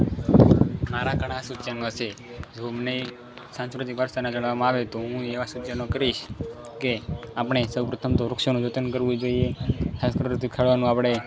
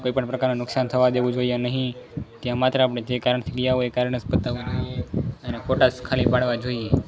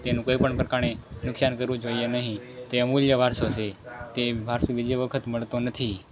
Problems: background sounds at intervals